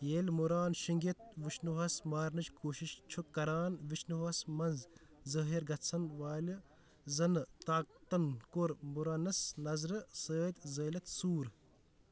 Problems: background sounds at intervals